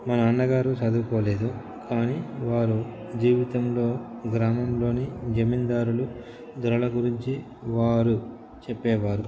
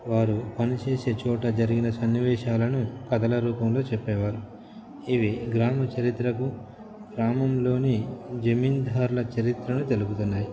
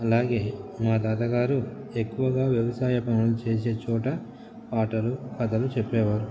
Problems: constant background noise